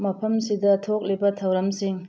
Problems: none marked